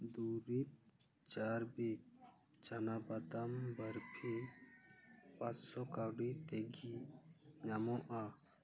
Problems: none marked